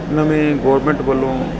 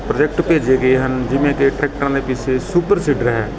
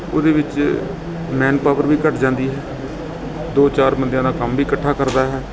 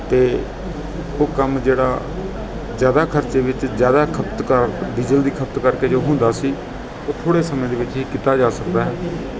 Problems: constant background noise, continuous background conversations